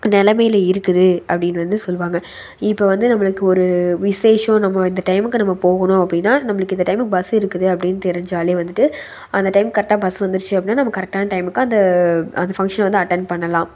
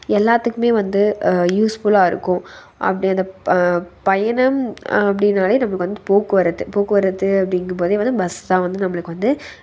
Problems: none marked